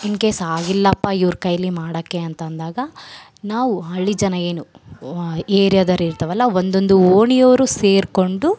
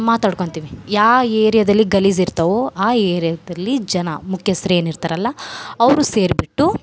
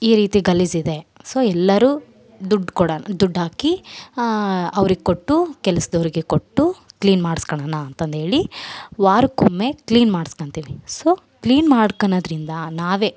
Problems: background sounds at intervals